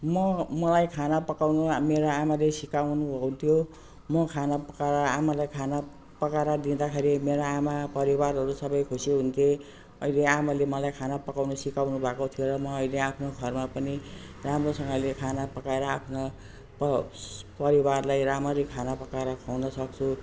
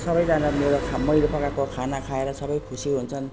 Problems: none marked